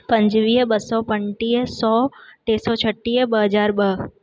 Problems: none marked